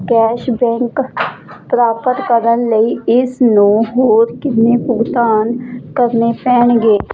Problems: none marked